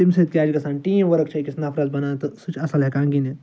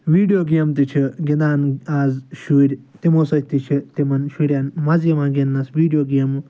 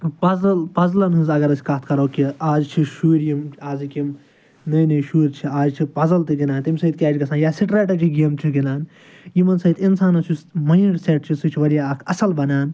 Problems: background sounds at intervals